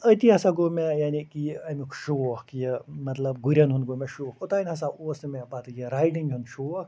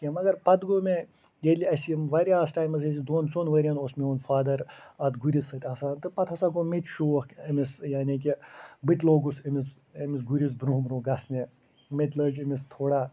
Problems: none marked